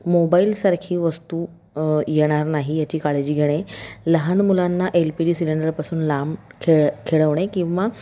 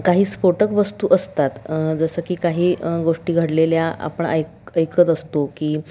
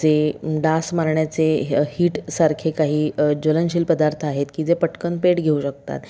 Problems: background sounds at intervals, background conversations at intervals